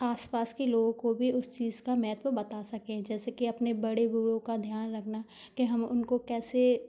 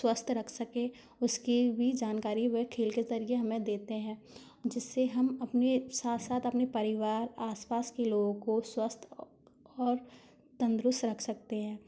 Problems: constant background noise